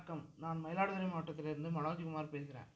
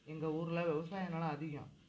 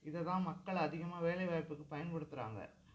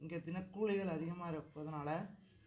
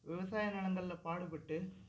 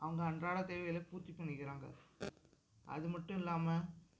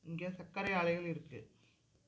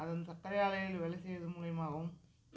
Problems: background sounds at intervals, low volume